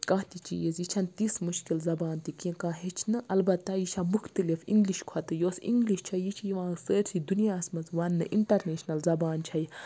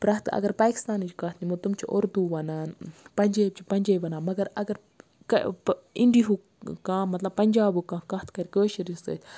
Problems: constant background noise